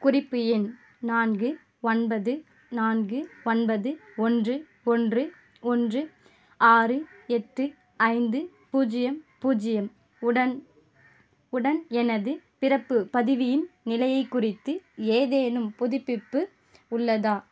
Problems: none marked